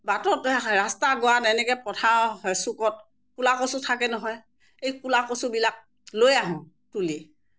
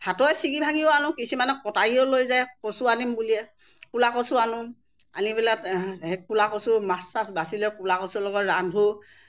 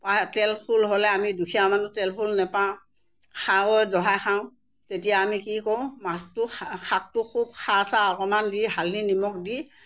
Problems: background sounds at intervals